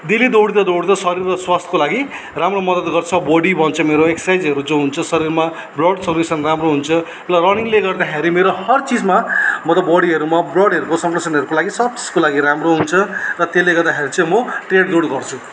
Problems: none marked